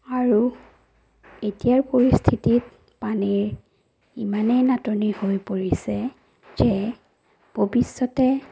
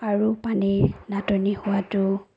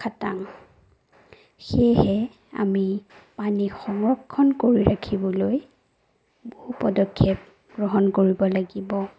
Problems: none marked